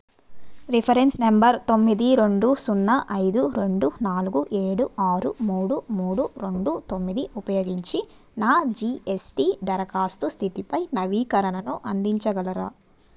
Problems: none marked